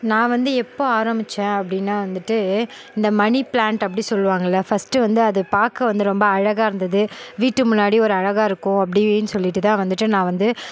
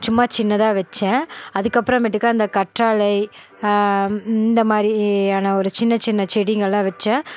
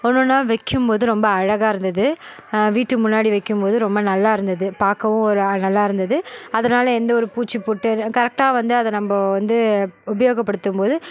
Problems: none marked